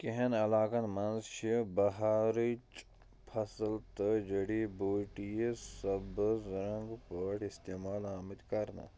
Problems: low volume